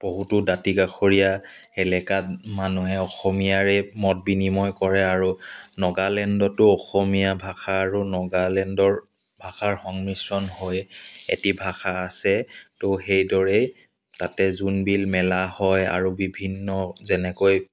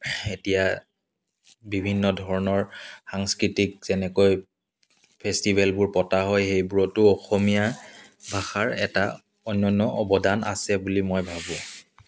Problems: none marked